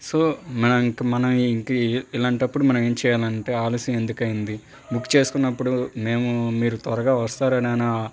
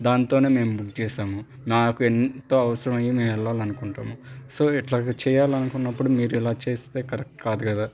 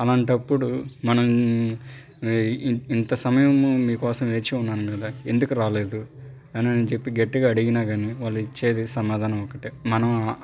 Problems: none marked